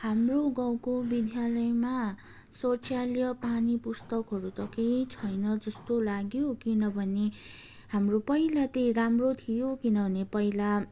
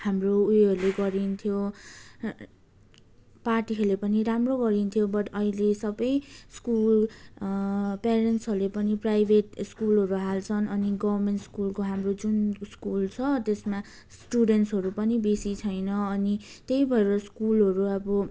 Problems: none marked